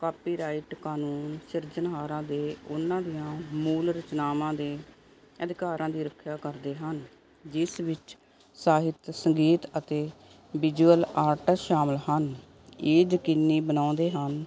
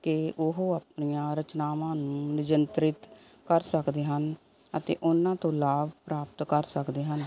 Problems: none marked